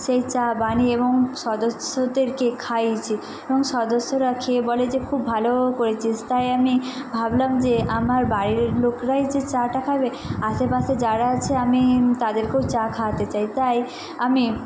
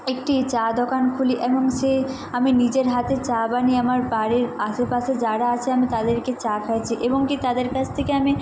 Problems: none marked